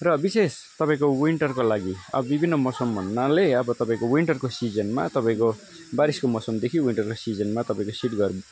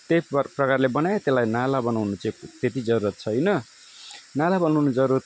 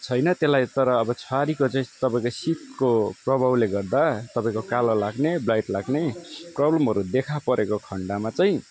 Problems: none marked